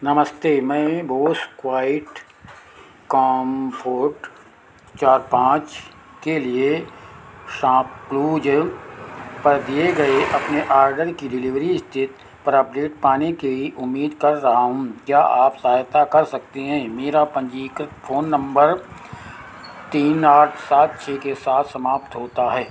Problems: constant background noise